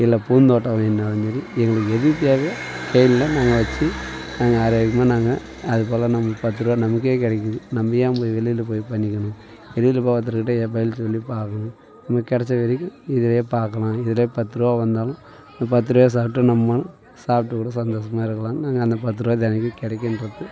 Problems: background sounds at intervals, continuous background conversations